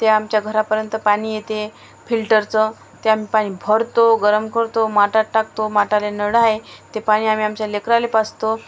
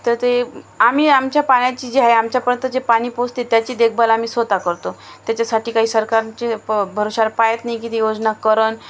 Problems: background sounds at intervals